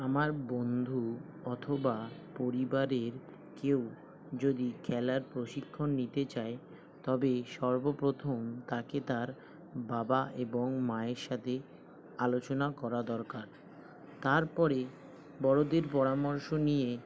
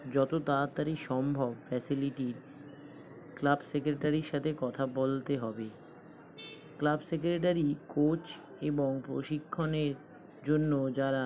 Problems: constant background noise